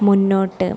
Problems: constant background noise, low volume